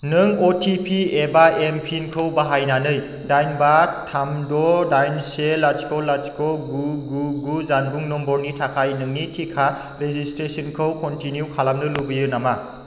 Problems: constant background noise